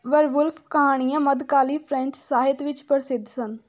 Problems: background sounds at intervals